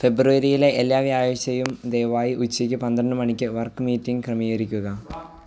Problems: background sounds at intervals